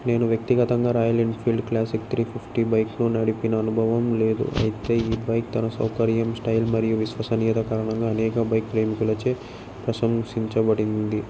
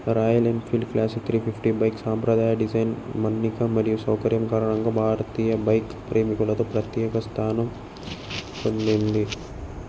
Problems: background sounds at intervals